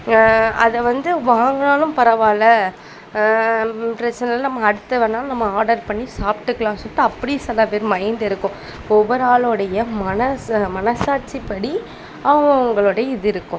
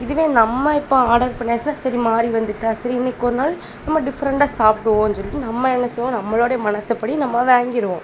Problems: constant background noise, background conversations at intervals